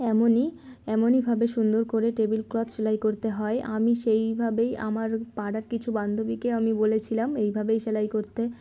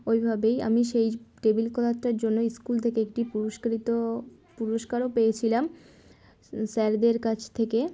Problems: constant background noise, background conversations at intervals